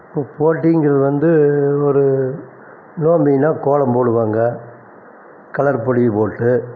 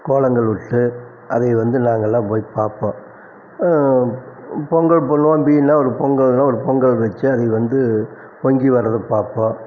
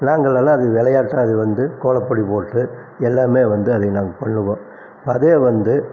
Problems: constant background noise